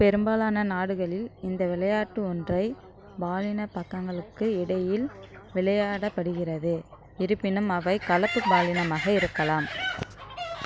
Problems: background sounds at intervals